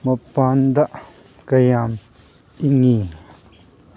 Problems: background sounds at intervals